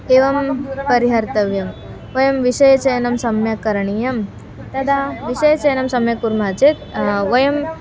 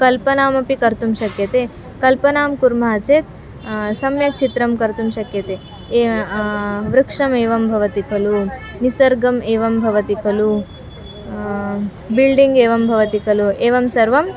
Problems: constant background noise, continuous background conversations